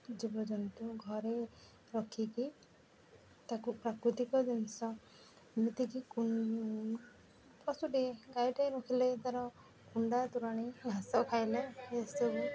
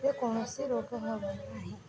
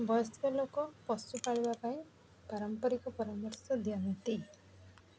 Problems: background sounds at intervals, background conversations at intervals